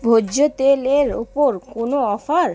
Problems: background conversations at intervals